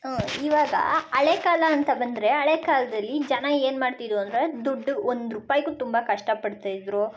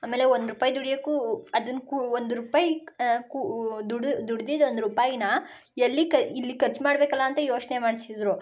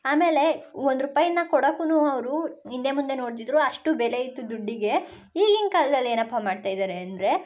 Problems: background sounds at intervals